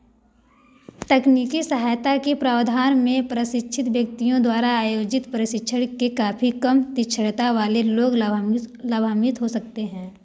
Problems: background sounds at intervals